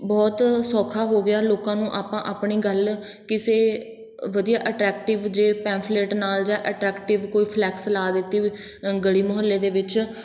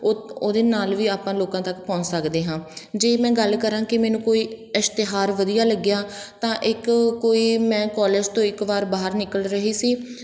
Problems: background sounds at intervals